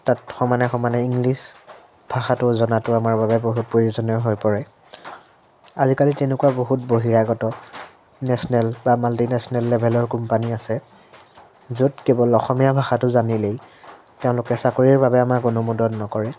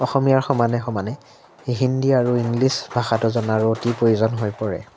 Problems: constant background noise